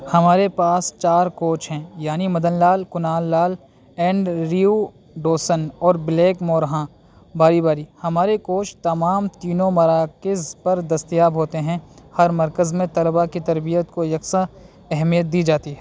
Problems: constant background noise